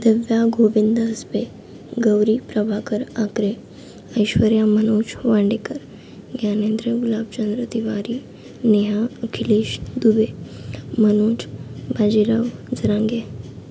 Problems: constant background noise